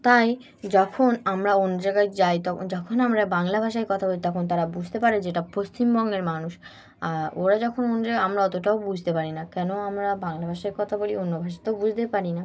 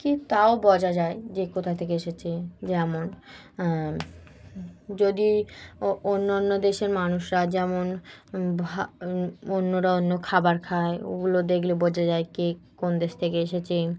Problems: constant background noise